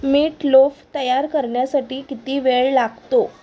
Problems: constant background noise